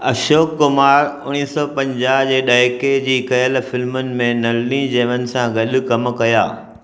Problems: echo